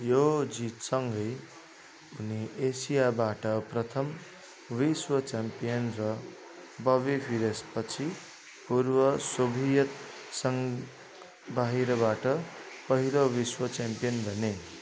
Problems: constant background noise, continuous background conversations